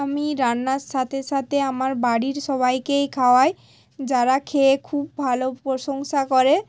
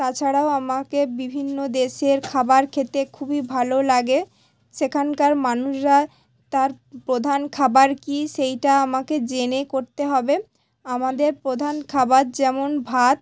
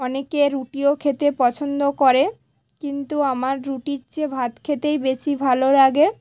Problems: none marked